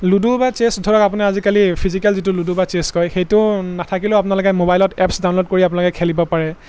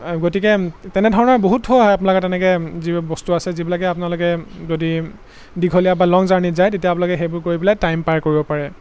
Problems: constant background noise